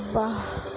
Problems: constant background noise